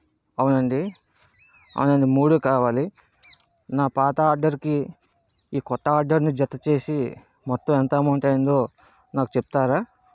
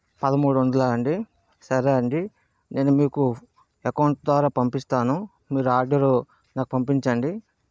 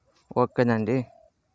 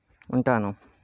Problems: background sounds at intervals